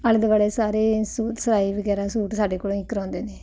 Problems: constant background noise